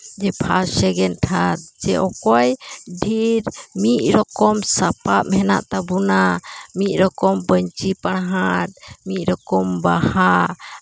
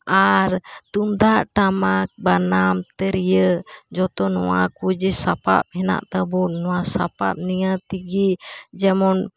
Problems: constant background noise